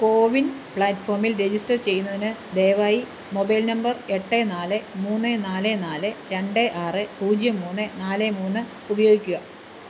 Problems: constant background noise